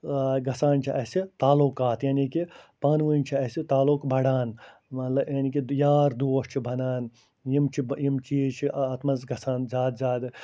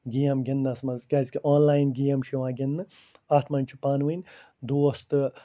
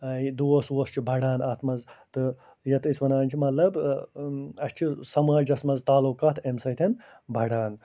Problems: none marked